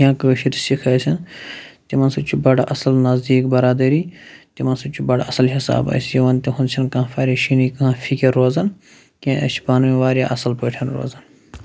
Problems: constant background noise